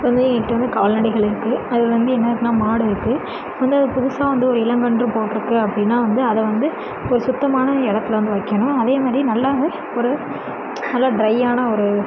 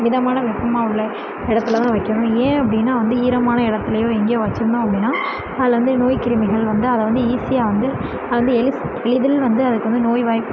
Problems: background sounds at intervals